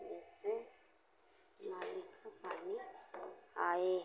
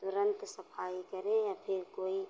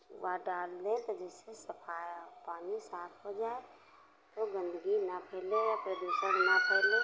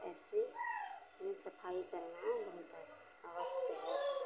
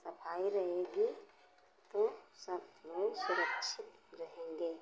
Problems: none marked